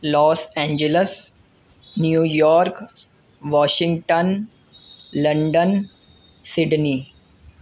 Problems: constant background noise